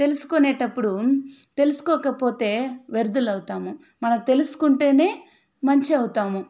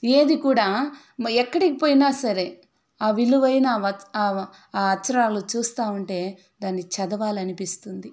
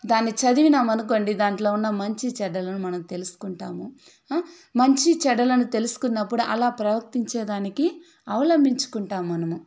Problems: background sounds at intervals